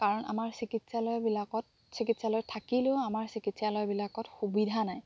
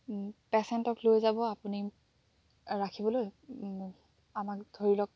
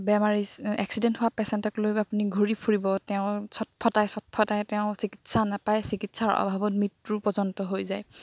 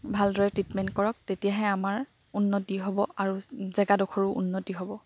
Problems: background sounds at intervals